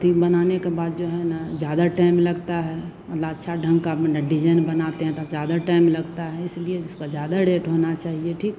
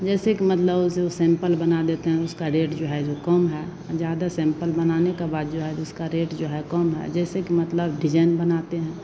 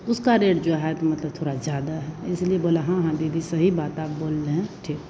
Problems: constant background noise